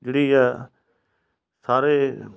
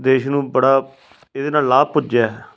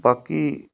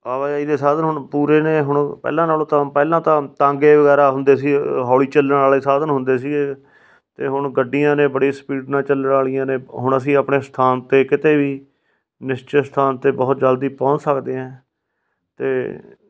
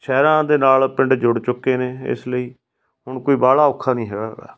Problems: background sounds at intervals